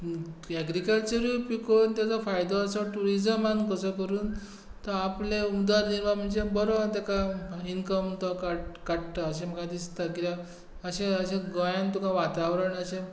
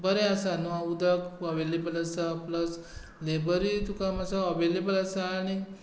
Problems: background sounds at intervals